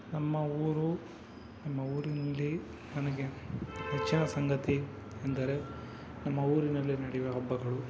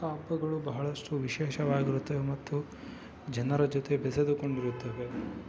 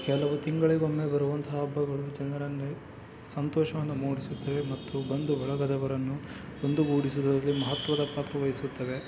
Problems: low volume